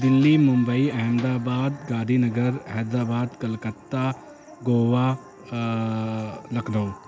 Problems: constant background noise